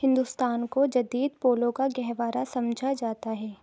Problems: constant background noise